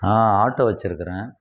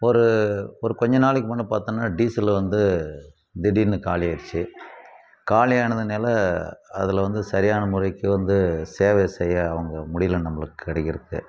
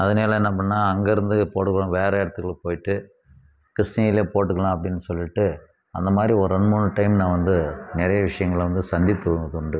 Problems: constant background noise